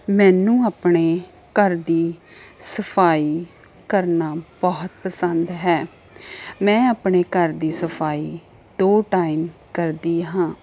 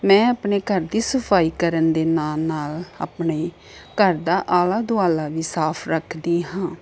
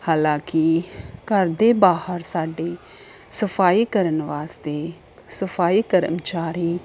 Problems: constant background noise